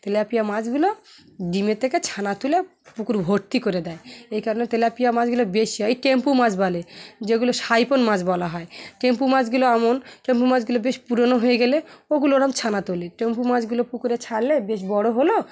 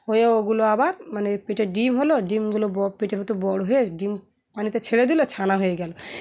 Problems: constant background noise, continuous background conversations